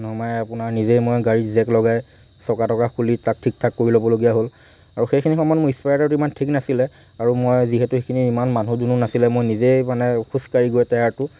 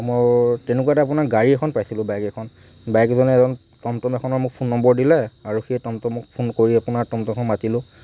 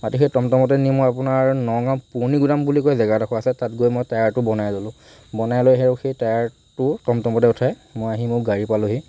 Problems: none marked